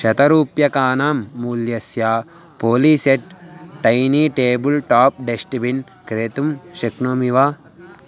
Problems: constant background noise